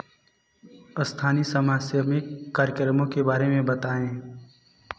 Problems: none marked